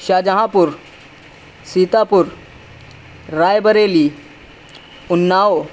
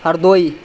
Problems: none marked